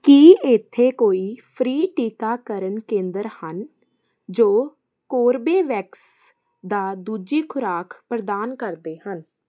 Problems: constant background noise